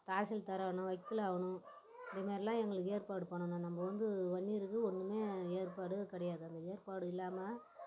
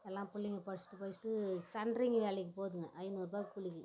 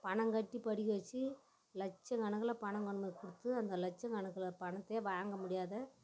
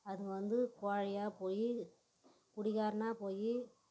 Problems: background sounds at intervals